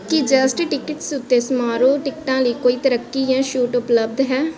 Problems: continuous background conversations